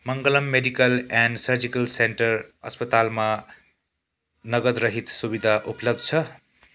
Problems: constant background noise